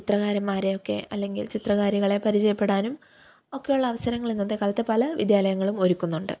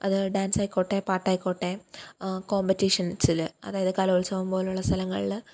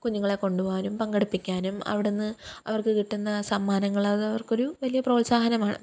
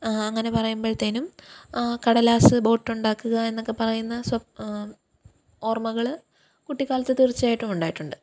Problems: none marked